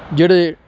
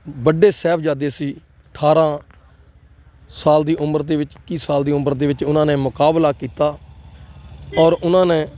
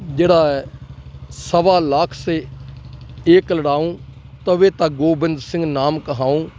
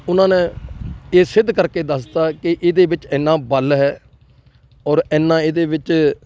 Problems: none marked